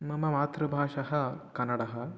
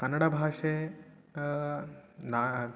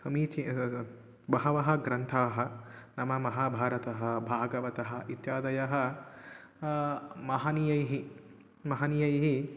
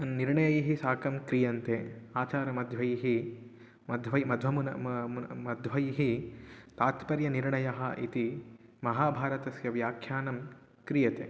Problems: none marked